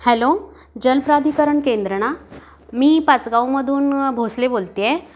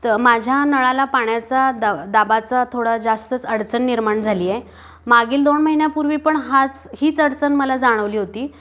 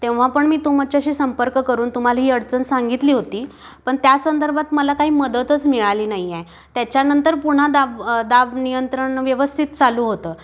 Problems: constant background noise